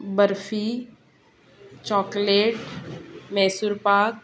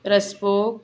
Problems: constant background noise, continuous background conversations